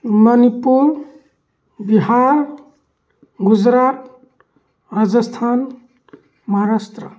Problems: background sounds at intervals